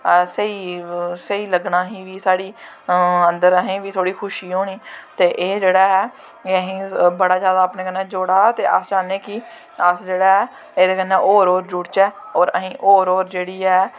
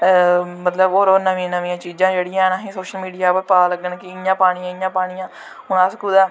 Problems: constant background noise